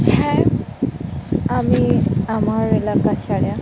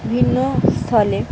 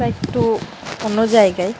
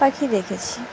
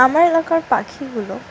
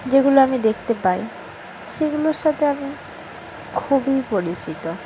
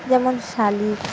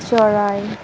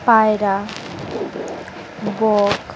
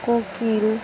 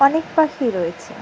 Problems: background sounds at intervals